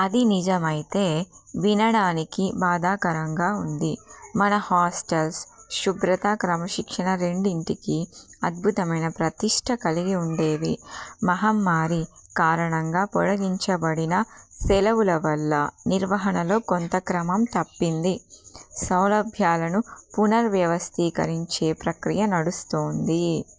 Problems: background sounds at intervals